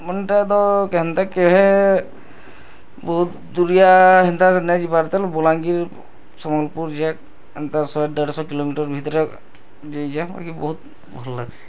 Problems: constant background noise